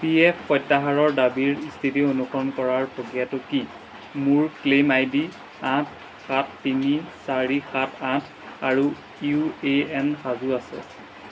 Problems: background sounds at intervals